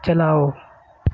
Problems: constant background noise